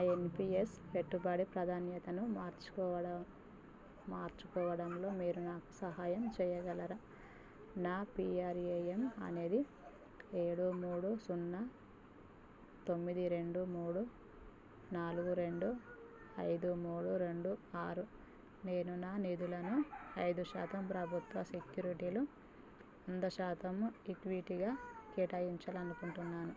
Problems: low volume